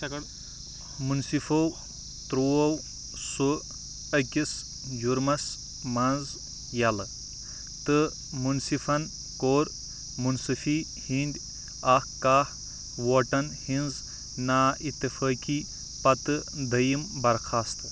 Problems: none marked